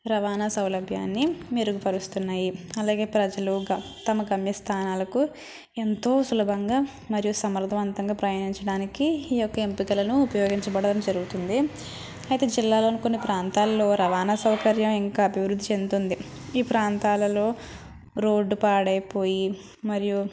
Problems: none marked